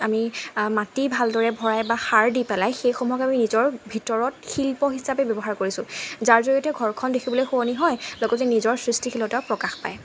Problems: constant background noise